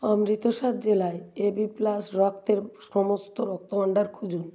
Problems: none marked